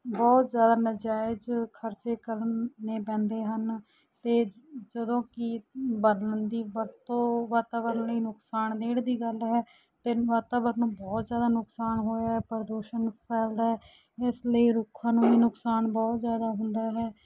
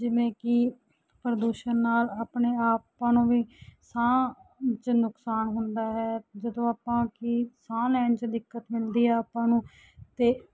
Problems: none marked